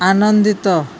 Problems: constant background noise